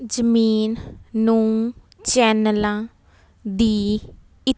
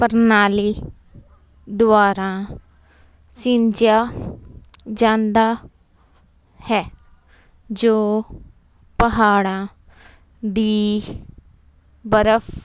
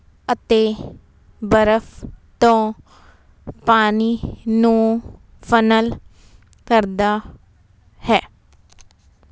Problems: none marked